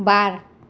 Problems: none marked